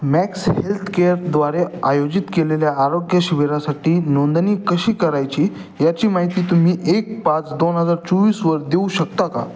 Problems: background sounds at intervals